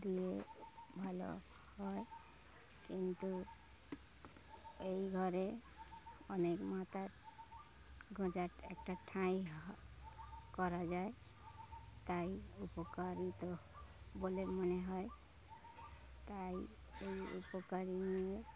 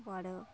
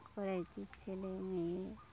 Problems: none marked